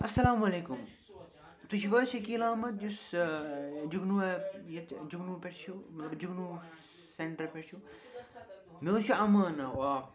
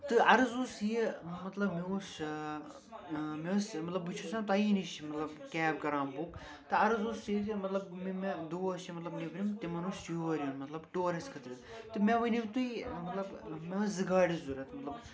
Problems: constant background noise, continuous background conversations